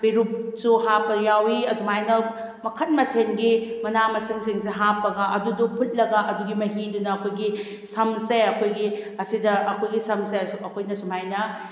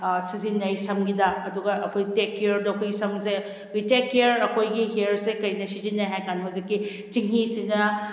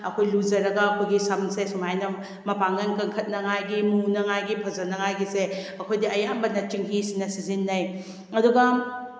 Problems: none marked